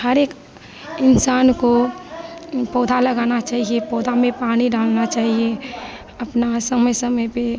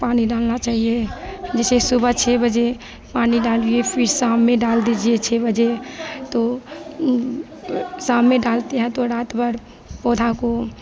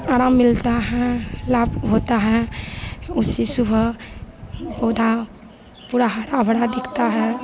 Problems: constant background noise